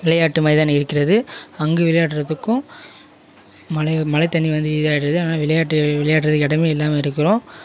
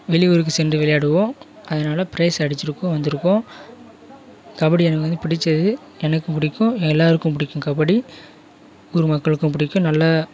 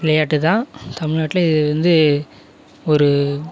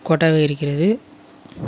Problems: background sounds at intervals